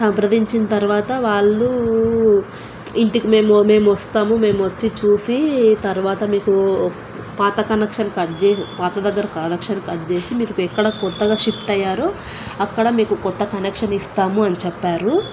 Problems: constant background noise